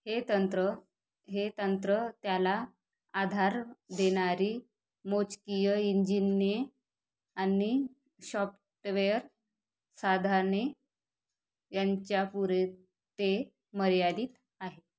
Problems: none marked